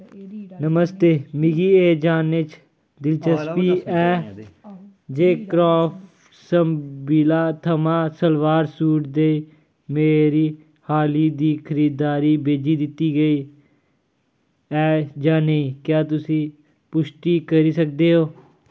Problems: none marked